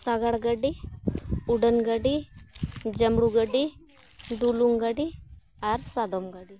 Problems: background sounds at intervals